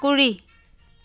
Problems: background sounds at intervals